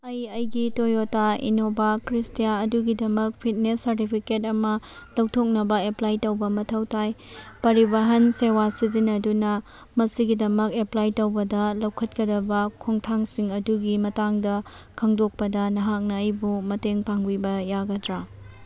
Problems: background sounds at intervals